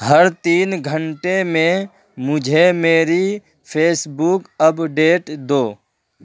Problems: none marked